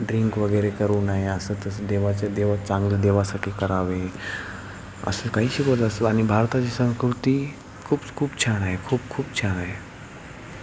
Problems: constant background noise, continuous background conversations